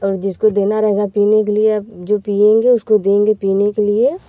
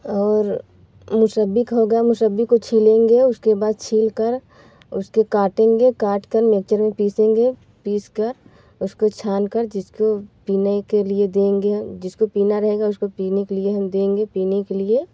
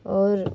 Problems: background sounds at intervals